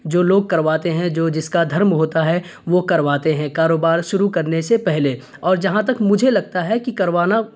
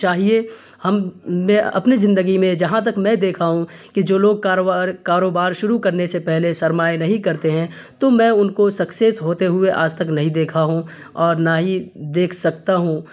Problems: none marked